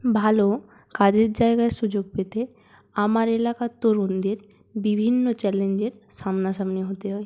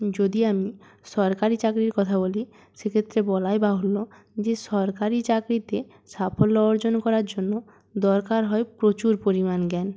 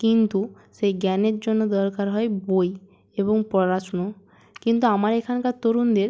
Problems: background sounds at intervals